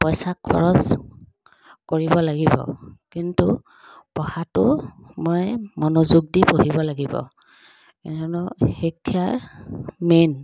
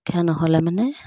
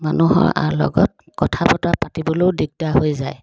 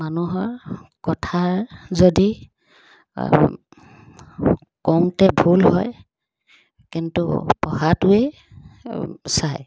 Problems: constant background noise